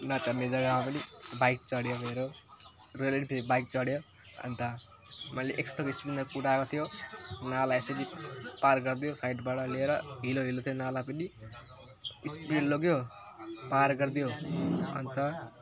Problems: none marked